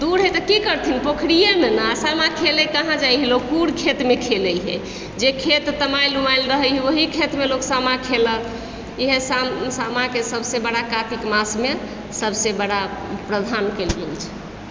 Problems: background sounds at intervals